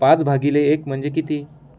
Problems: background sounds at intervals